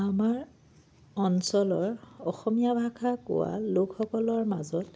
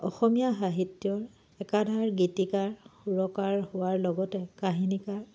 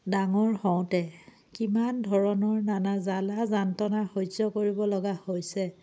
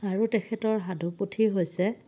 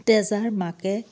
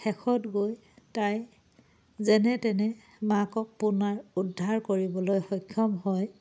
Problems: background sounds at intervals